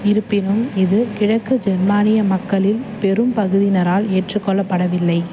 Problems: constant background noise